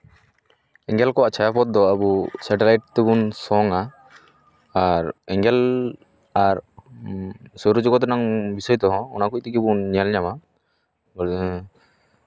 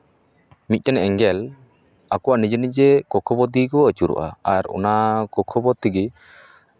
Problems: background sounds at intervals, background conversations at intervals